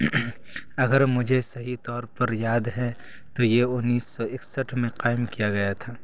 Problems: none marked